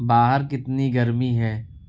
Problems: none marked